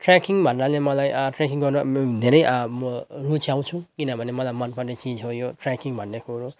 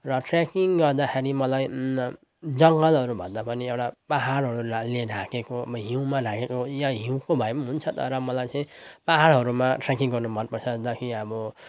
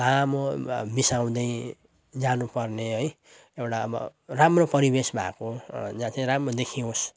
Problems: none marked